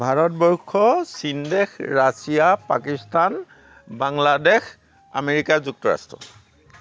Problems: background sounds at intervals